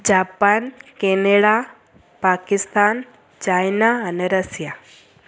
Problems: constant background noise